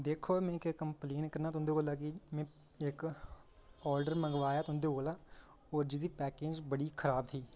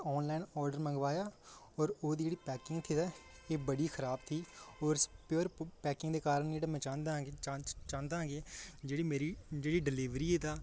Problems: none marked